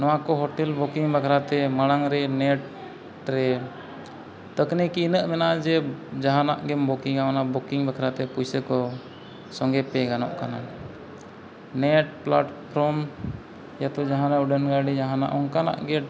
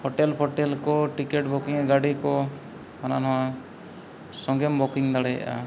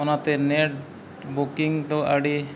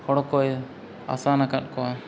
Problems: background sounds at intervals